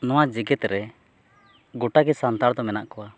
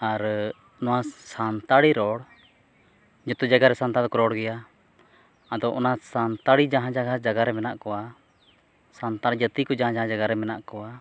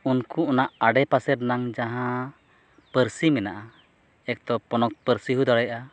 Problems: none marked